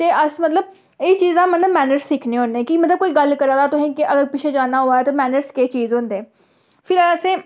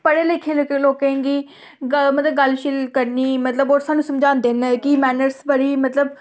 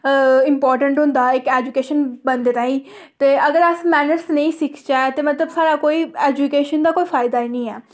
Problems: none marked